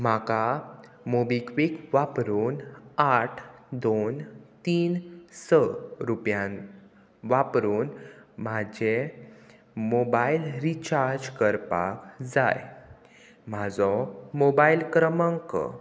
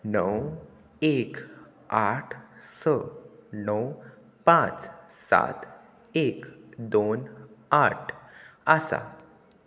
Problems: none marked